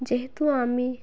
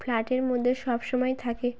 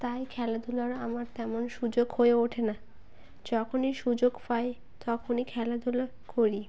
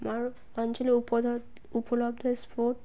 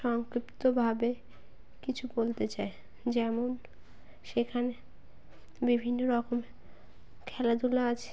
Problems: background sounds at intervals